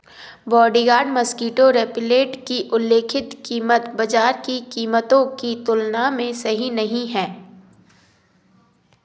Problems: background sounds at intervals